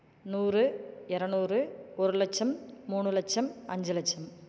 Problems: none marked